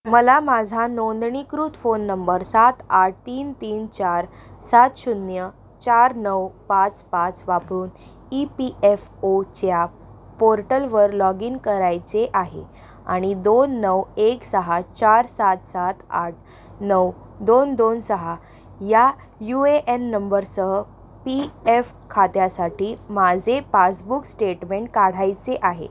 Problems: background sounds at intervals